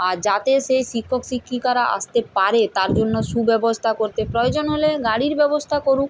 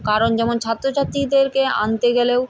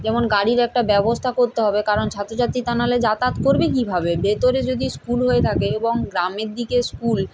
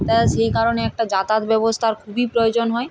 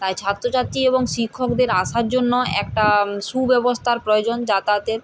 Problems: none marked